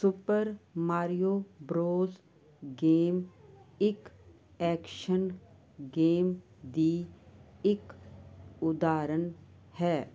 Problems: none marked